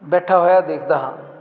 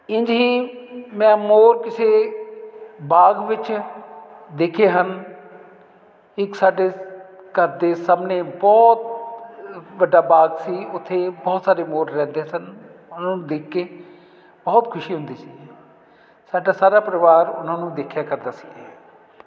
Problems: none marked